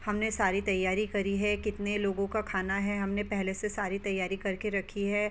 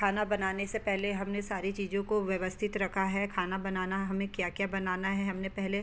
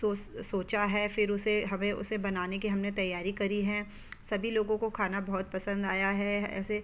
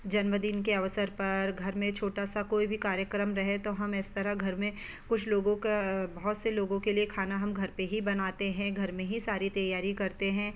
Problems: background sounds at intervals